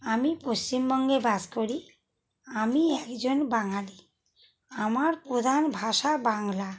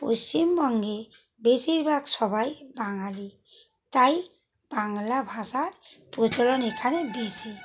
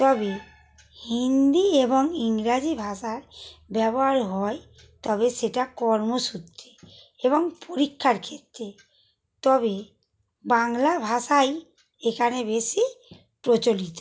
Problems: constant background noise